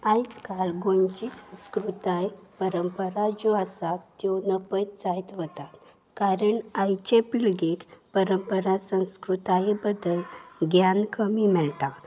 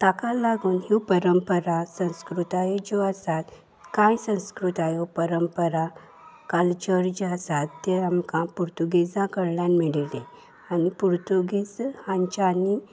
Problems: background sounds at intervals